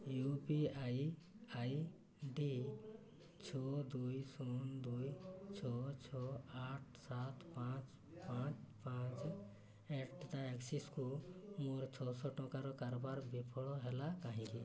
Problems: constant background noise, continuous background conversations